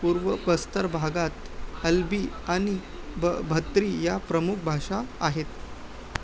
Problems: constant background noise, background conversations at intervals, low volume